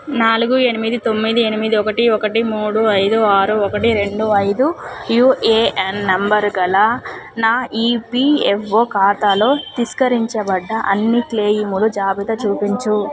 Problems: background sounds at intervals, background conversations at intervals